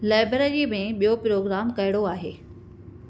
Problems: none marked